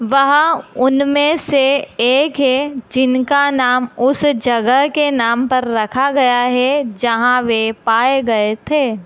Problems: constant background noise